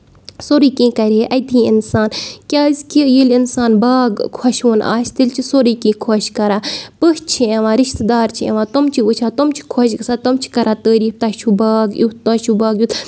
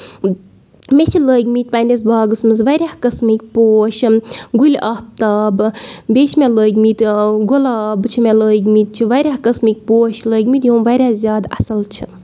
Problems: none marked